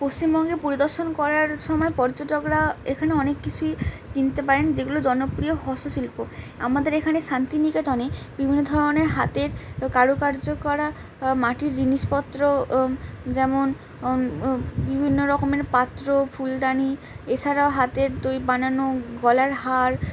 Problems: none marked